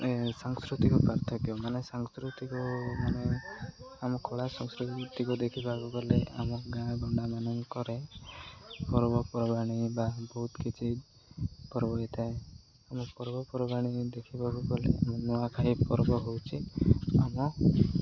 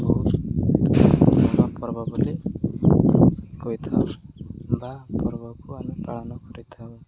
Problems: echo